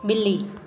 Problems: constant background noise, echo